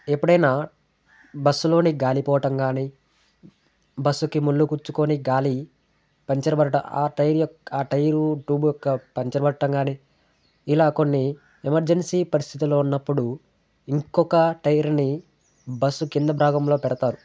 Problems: background conversations at intervals